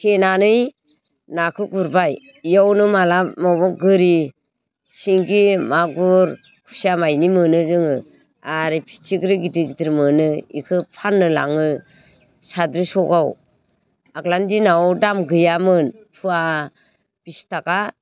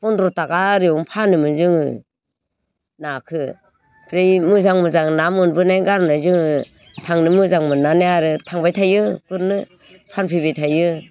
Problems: constant background noise